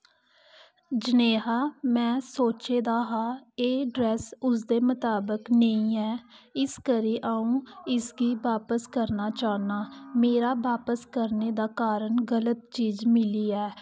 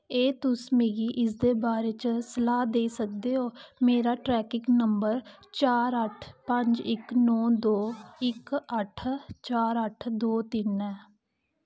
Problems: constant background noise